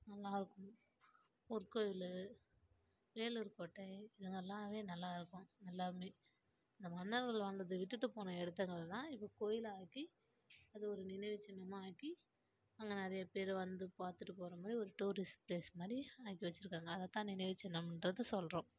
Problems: low volume